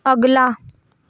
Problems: background sounds at intervals